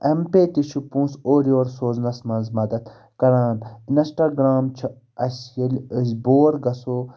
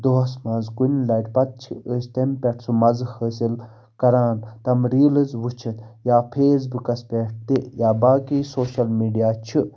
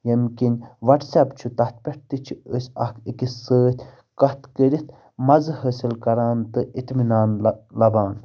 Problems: none marked